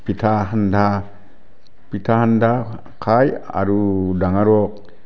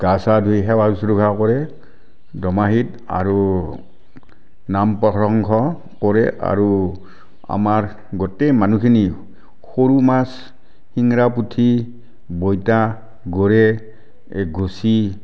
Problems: none marked